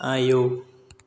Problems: constant background noise